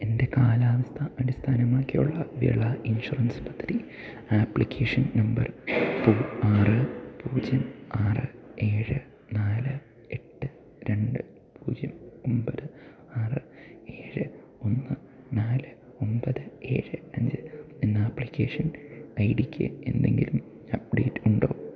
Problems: background sounds at intervals, low volume